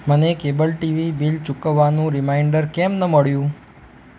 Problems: none marked